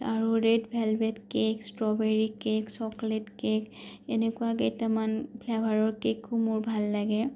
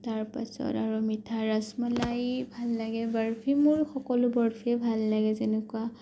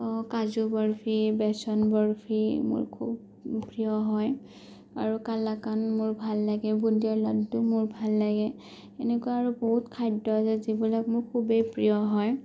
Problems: none marked